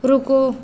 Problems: constant background noise